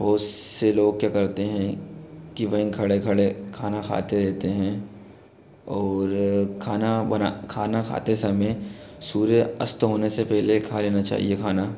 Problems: constant background noise